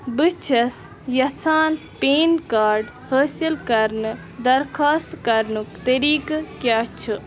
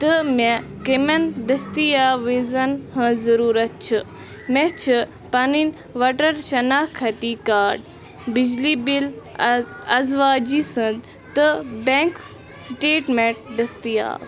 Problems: constant background noise, continuous background conversations